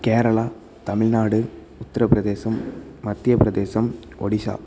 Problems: constant background noise